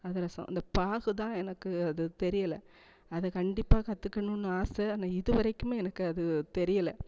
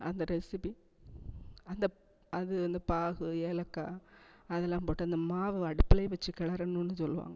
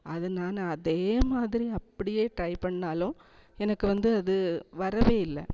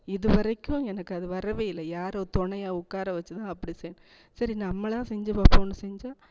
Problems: echo